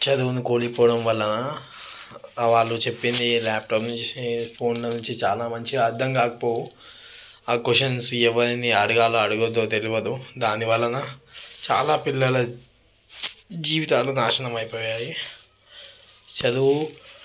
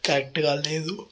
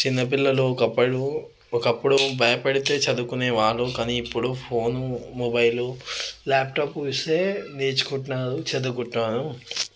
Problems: background sounds at intervals